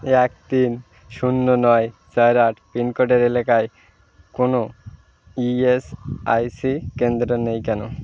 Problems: none marked